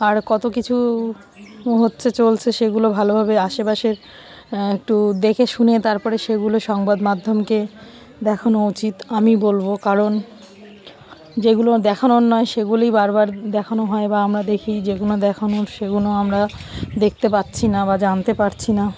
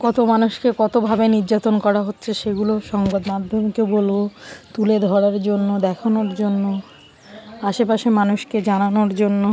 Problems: background sounds at intervals